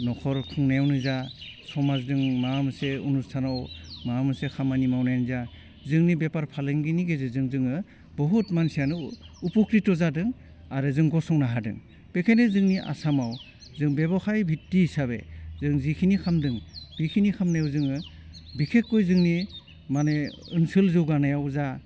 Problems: none marked